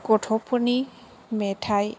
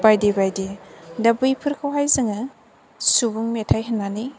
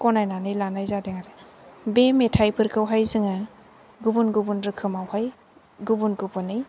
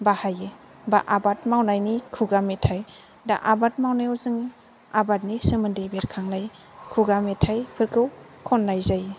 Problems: low volume